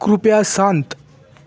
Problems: constant background noise, continuous background conversations